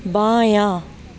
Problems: constant background noise